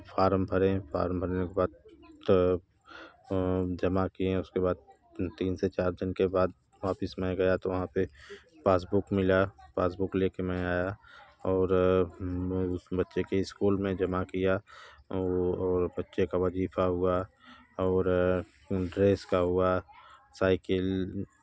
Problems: none marked